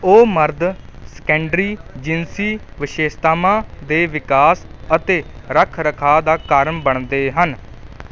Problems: background sounds at intervals